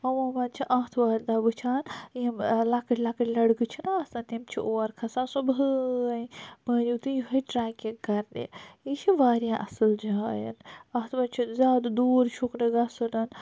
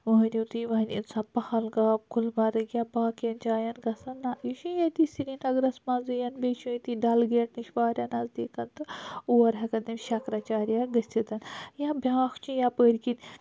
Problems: none marked